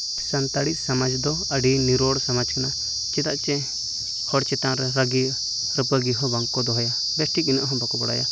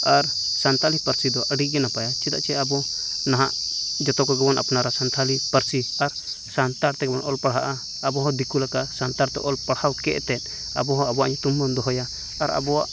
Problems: none marked